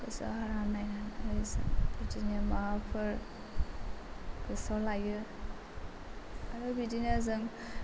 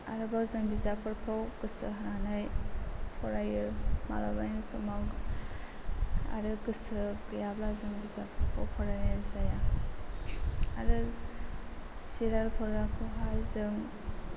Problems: constant background noise